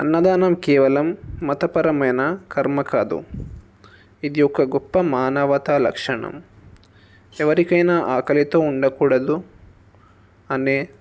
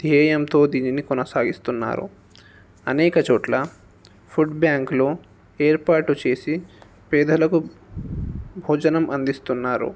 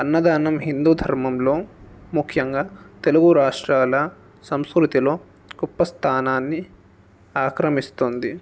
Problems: background sounds at intervals